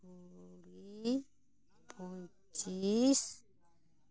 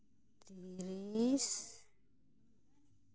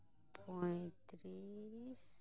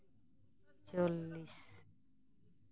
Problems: constant background noise, continuous background conversations